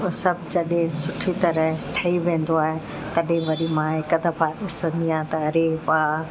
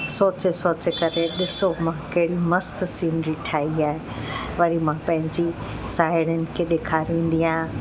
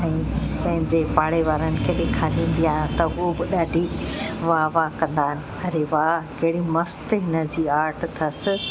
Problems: constant background noise